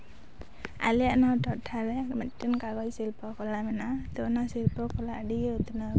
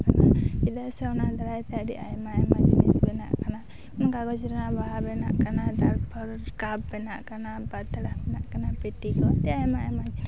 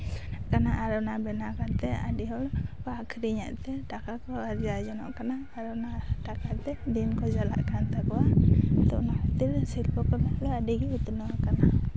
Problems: none marked